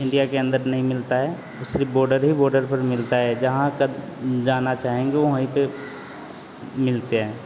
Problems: none marked